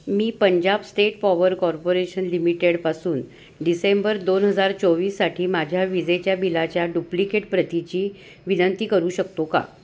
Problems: constant background noise